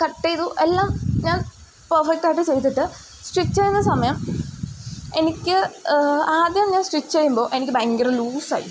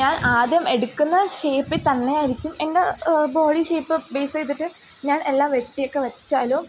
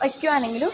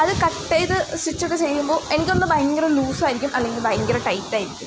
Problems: background sounds at intervals